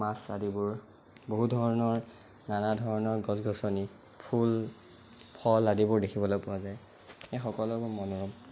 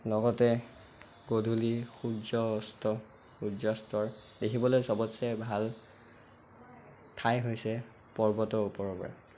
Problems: constant background noise